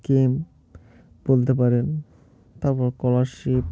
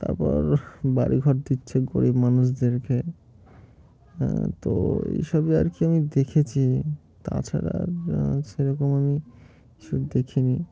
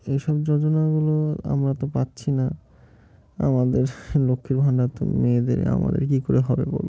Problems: constant background noise